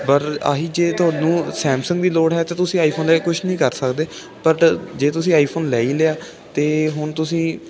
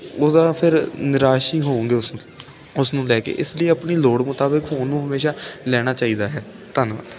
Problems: constant background noise